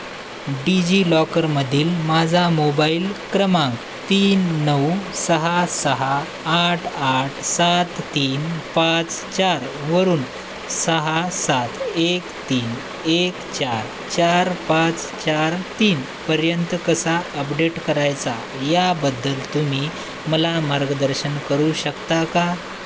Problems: constant background noise